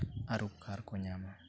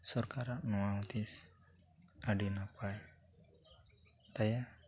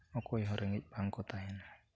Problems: background conversations at intervals